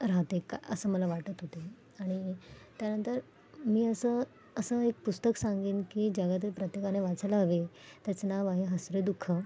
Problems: background sounds at intervals, background conversations at intervals